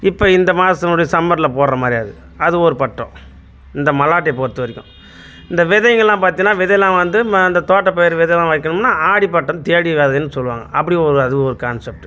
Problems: none marked